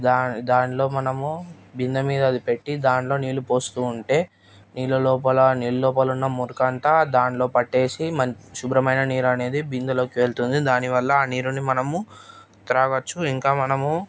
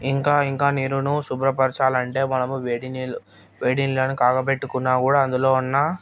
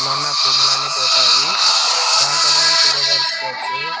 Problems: constant background noise